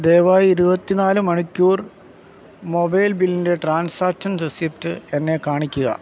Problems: background sounds at intervals